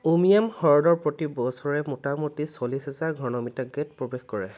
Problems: none marked